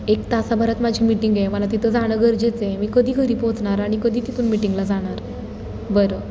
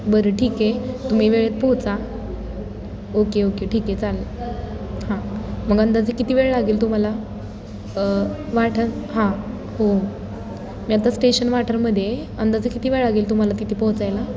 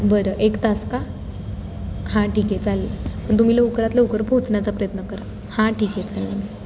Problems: none marked